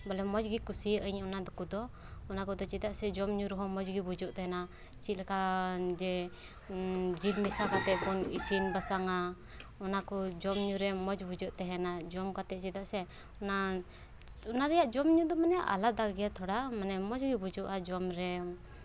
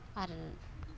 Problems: background sounds at intervals